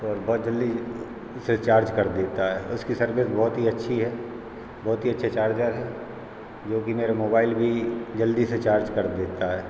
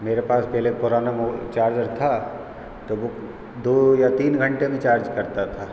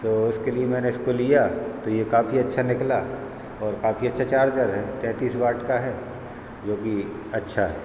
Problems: constant background noise